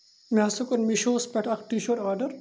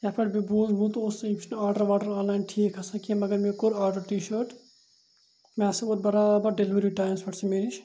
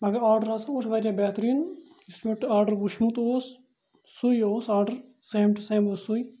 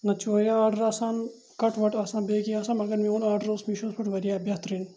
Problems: constant background noise